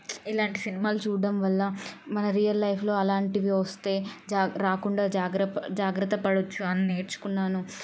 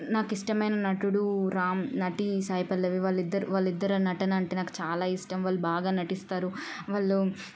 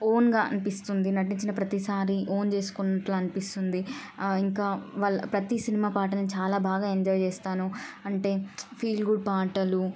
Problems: none marked